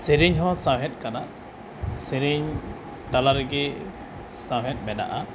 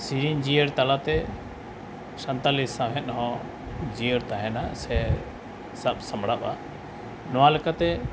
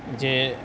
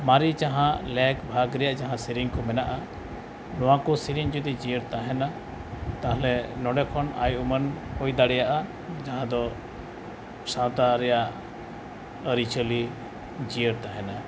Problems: background sounds at intervals